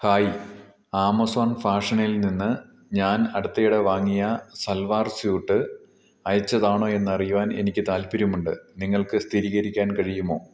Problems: low volume